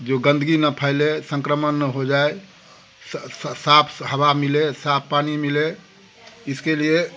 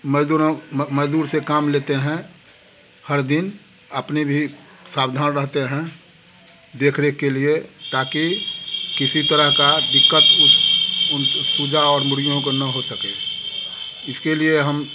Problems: constant background noise